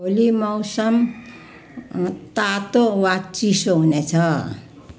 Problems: background sounds at intervals